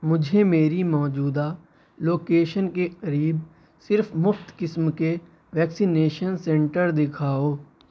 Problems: none marked